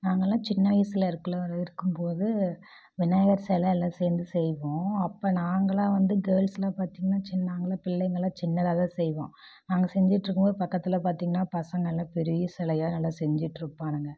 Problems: none marked